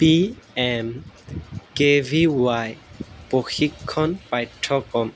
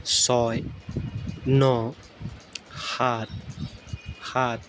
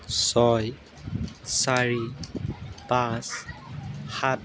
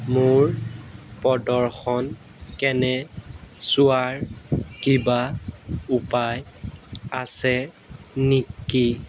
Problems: background sounds at intervals